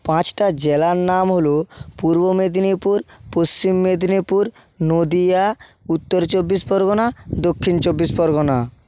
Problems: none marked